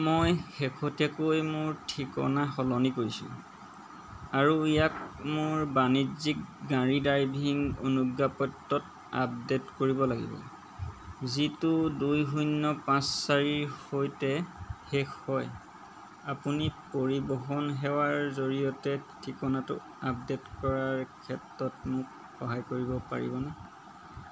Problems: none marked